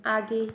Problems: none marked